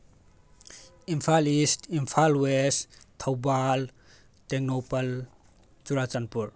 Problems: background sounds at intervals